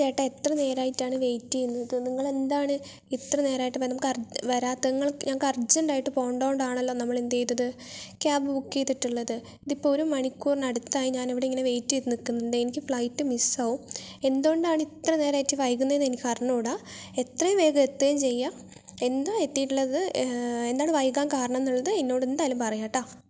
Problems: none marked